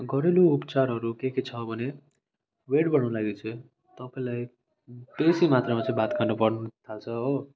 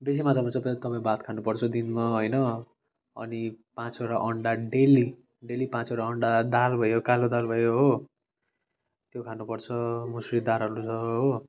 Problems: none marked